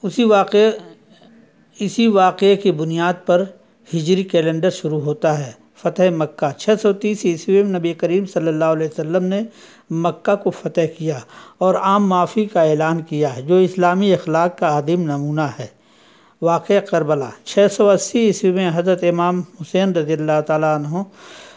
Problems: constant background noise